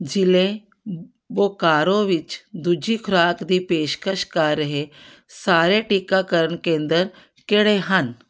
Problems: none marked